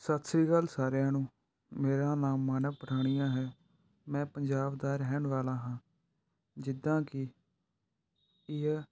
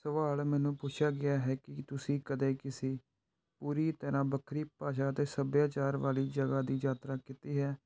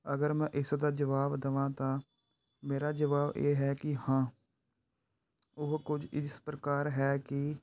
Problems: background sounds at intervals